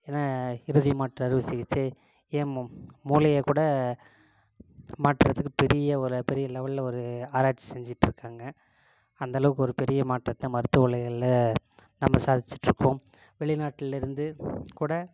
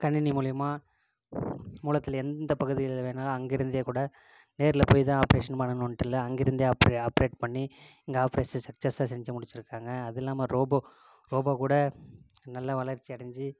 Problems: constant background noise, low volume